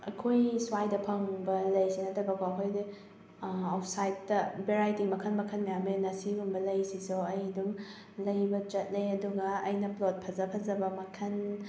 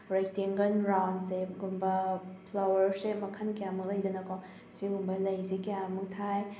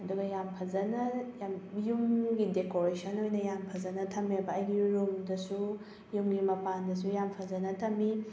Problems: background sounds at intervals